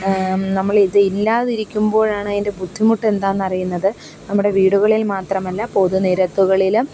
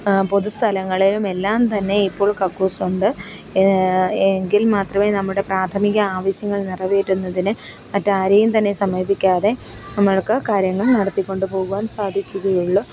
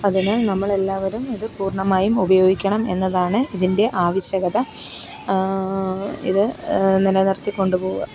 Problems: background sounds at intervals